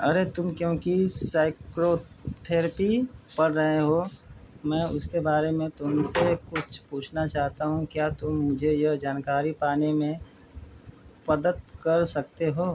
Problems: constant background noise